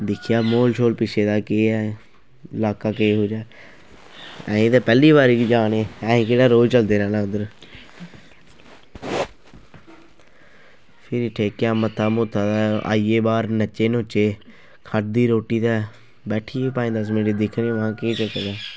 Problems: constant background noise